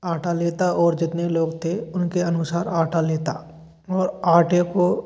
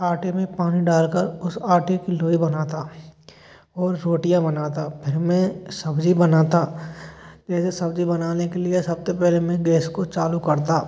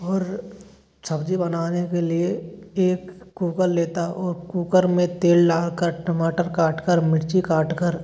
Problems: constant background noise